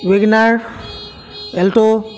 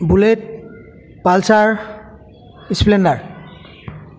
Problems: constant background noise, background conversations at intervals